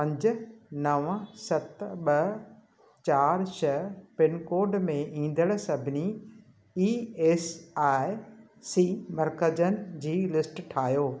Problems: constant background noise